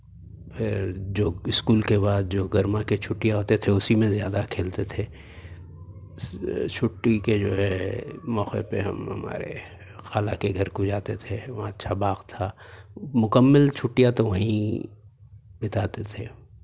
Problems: none marked